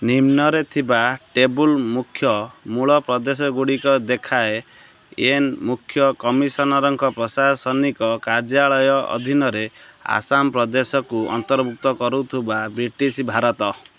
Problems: constant background noise